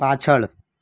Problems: none marked